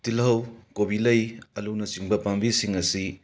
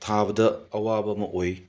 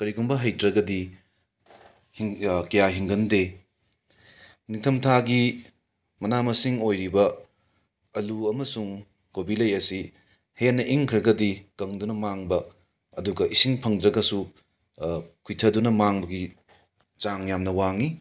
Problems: background sounds at intervals